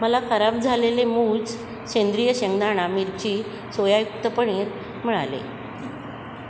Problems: constant background noise, background conversations at intervals